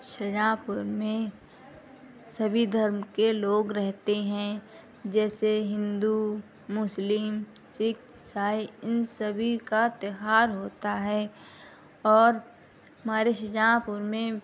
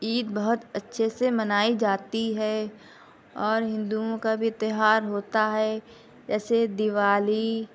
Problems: constant background noise, low volume